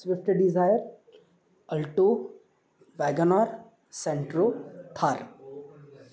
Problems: constant background noise, background conversations at intervals